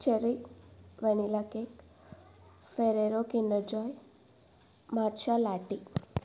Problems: background sounds at intervals